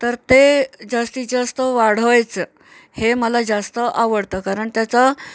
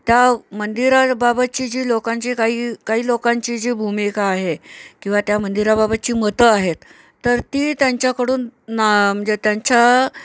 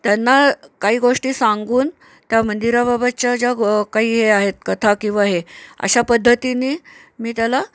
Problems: none marked